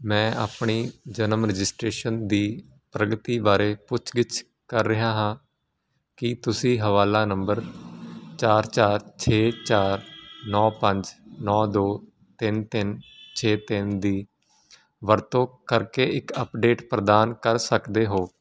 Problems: constant background noise